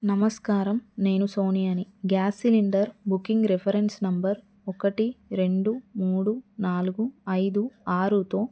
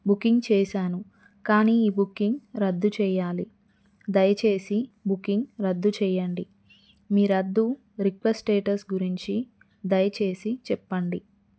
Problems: none marked